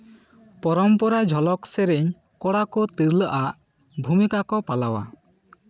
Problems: background conversations at intervals